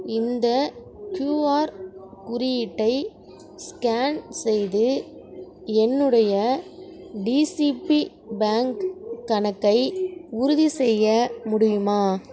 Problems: none marked